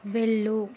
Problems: none marked